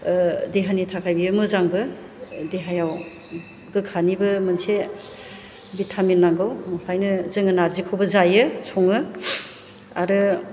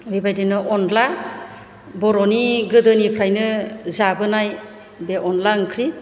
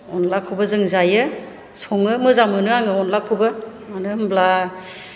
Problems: low volume